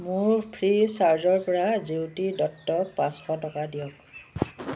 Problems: constant background noise